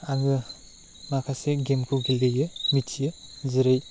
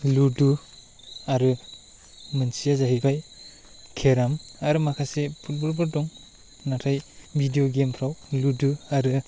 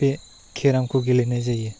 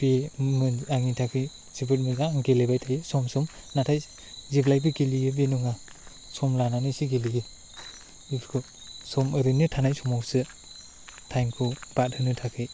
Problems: constant background noise